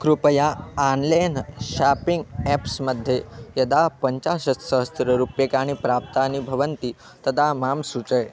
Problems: constant background noise, background conversations at intervals